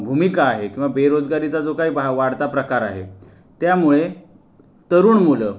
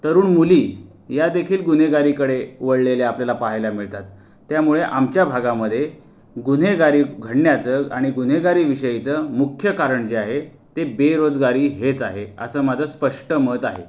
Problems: constant background noise